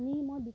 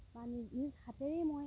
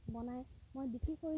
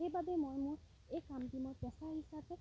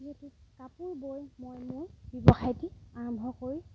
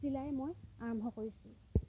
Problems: background sounds at intervals